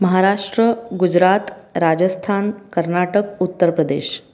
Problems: none marked